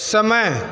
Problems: constant background noise